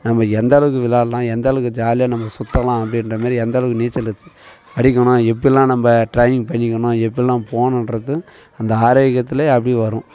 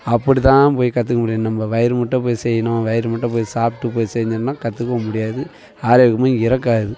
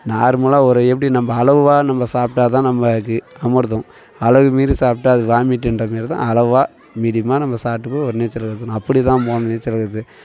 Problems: continuous background conversations